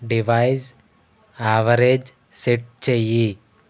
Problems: constant background noise